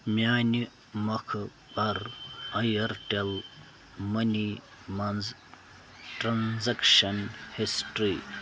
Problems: constant background noise